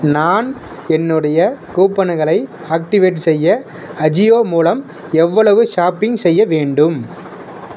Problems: constant background noise